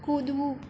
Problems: constant background noise